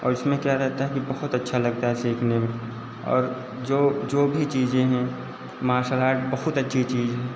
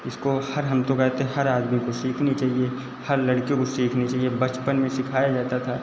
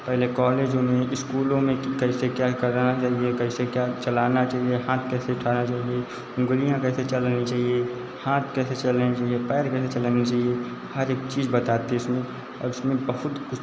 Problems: constant background noise, echo